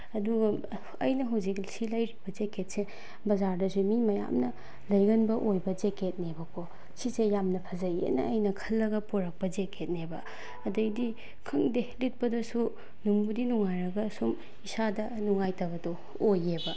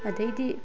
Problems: background sounds at intervals